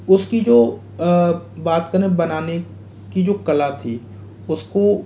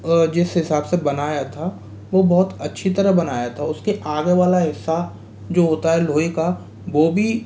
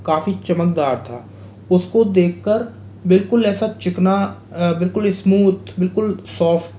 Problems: constant background noise